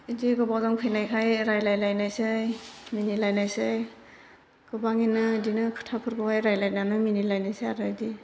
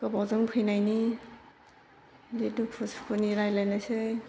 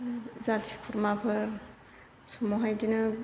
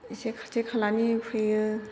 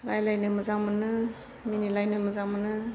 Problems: constant background noise